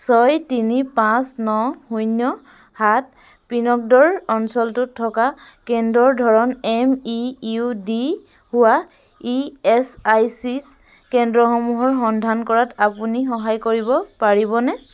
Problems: constant background noise